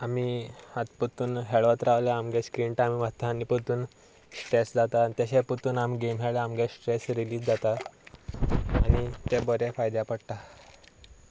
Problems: none marked